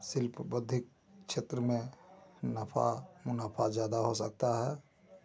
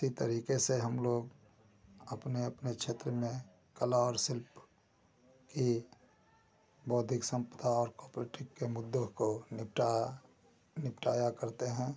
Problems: constant background noise